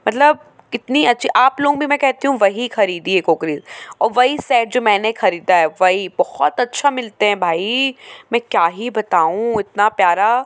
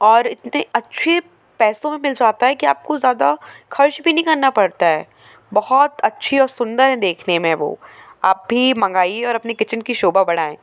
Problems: none marked